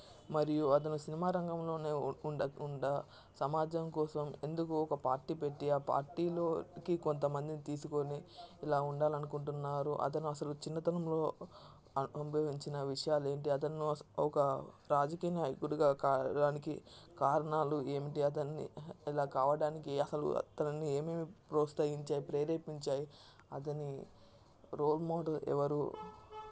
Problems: constant background noise, low volume